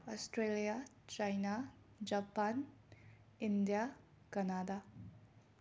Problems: none marked